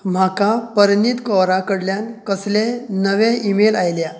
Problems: constant background noise